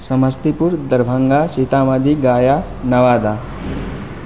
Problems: constant background noise